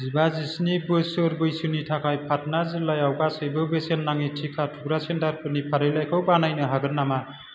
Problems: constant background noise